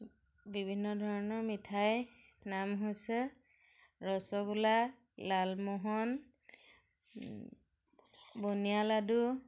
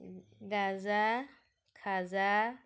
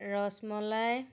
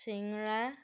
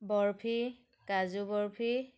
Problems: none marked